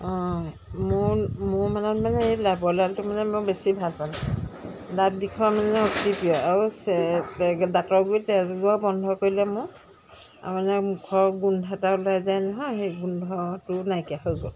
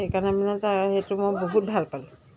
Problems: constant background noise